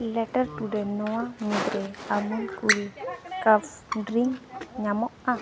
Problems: constant background noise, continuous background conversations